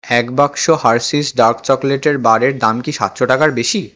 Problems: none marked